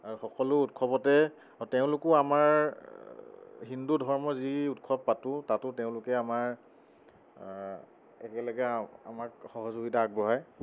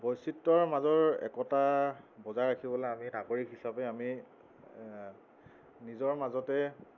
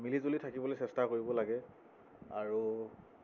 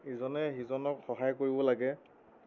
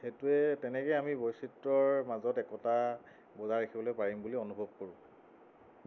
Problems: constant background noise